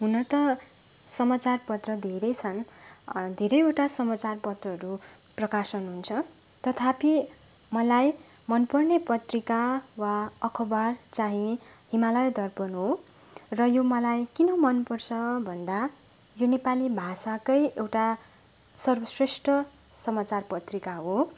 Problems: none marked